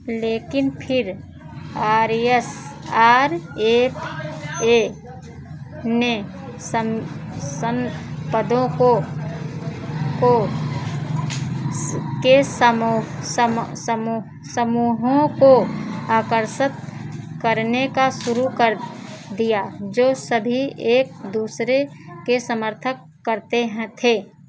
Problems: constant background noise